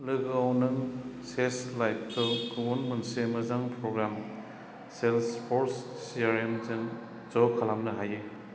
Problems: none marked